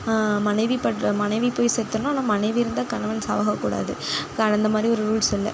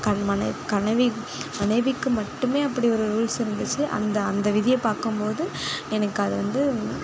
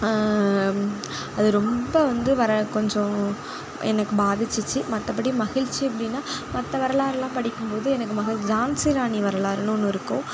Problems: none marked